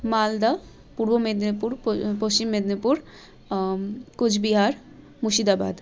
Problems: none marked